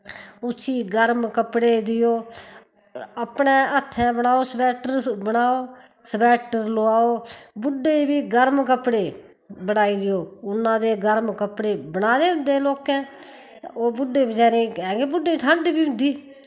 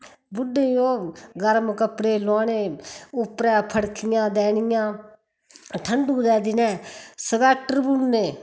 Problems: background sounds at intervals